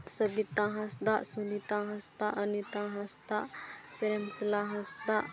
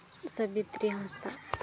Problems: background sounds at intervals, continuous background conversations, low volume